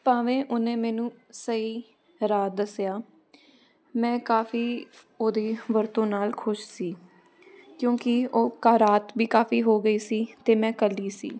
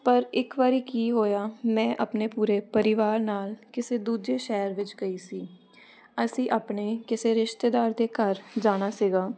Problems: none marked